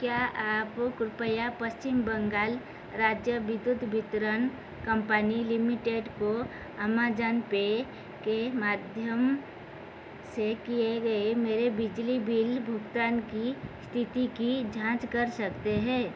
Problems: constant background noise